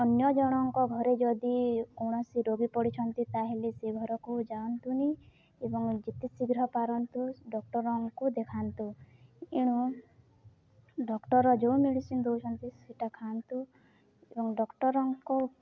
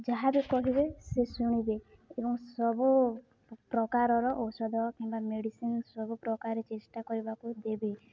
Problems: none marked